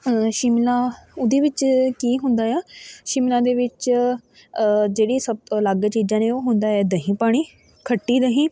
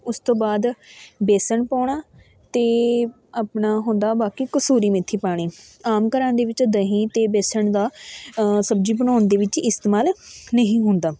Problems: constant background noise, continuous background conversations